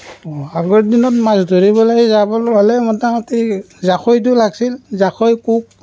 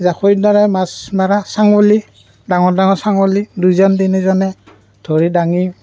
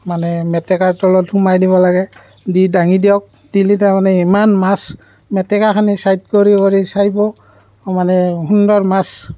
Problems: background sounds at intervals